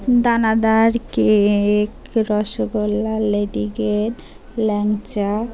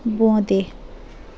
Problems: constant background noise, continuous background conversations